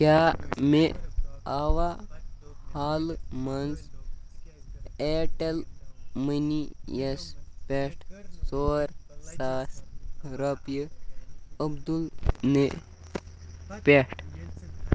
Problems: none marked